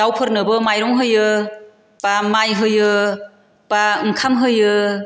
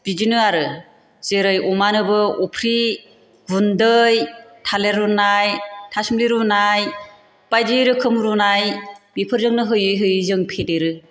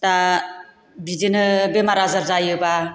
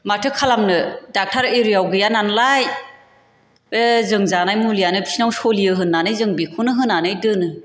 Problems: none marked